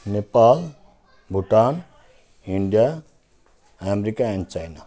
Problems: continuous background conversations